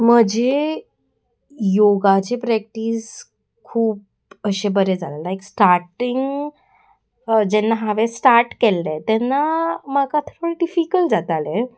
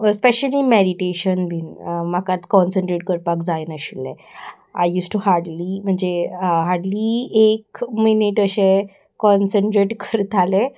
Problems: constant background noise